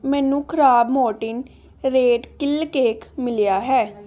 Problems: none marked